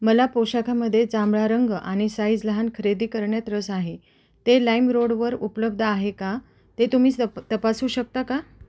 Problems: constant background noise